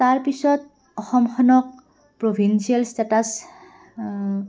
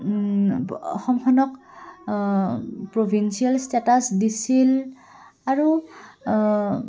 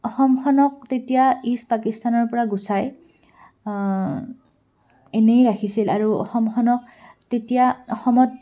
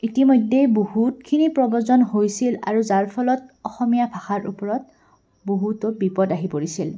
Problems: background sounds at intervals, background conversations at intervals